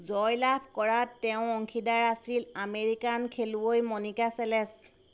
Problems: constant background noise